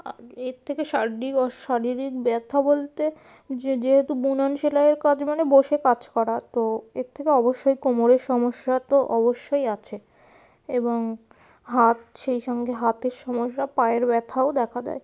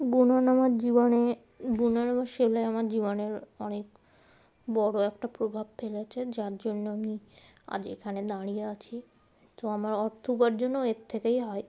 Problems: none marked